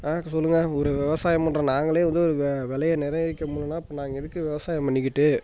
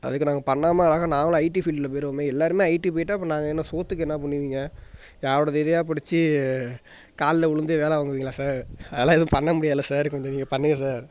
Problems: background sounds at intervals